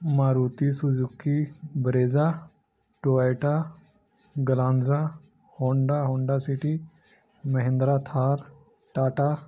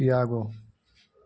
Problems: none marked